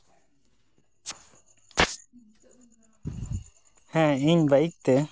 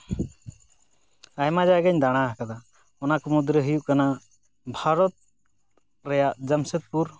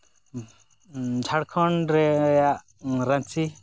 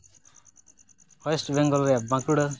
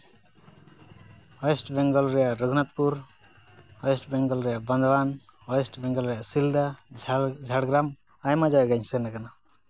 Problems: background sounds at intervals